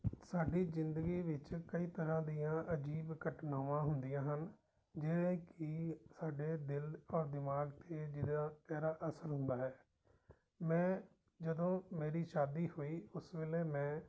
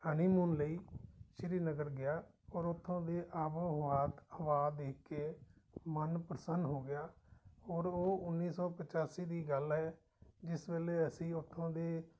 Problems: background sounds at intervals